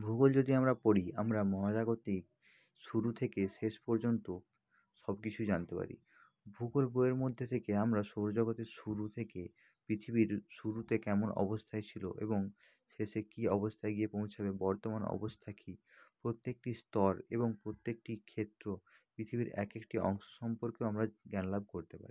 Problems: low volume